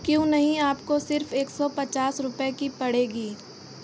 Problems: none marked